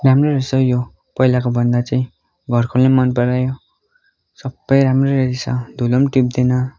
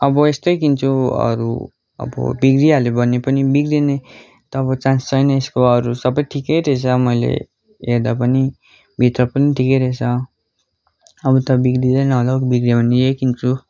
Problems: continuous background conversations